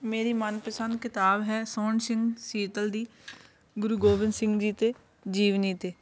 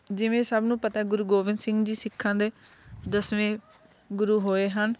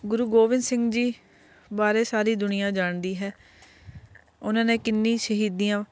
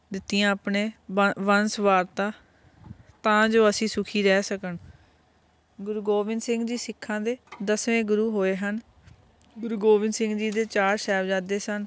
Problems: constant background noise